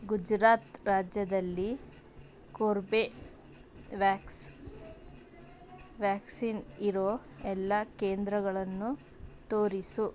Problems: none marked